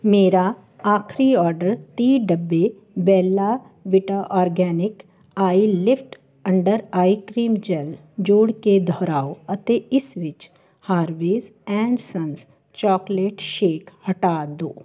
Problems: none marked